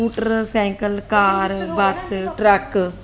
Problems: constant background noise